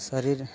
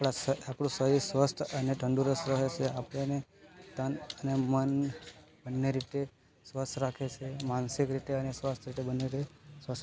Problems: constant background noise